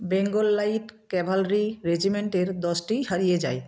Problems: constant background noise